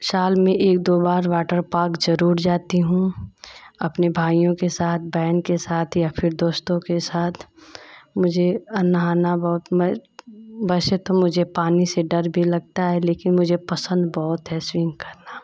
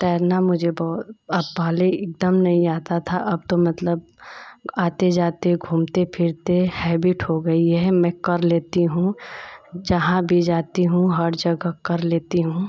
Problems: constant background noise